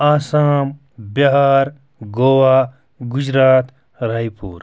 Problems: background sounds at intervals